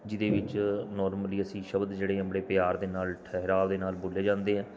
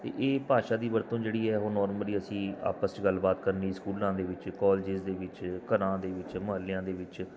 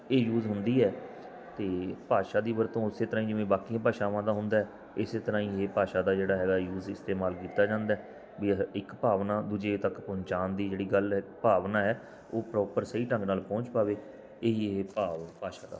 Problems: background sounds at intervals